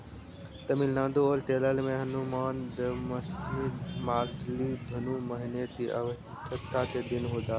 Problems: none marked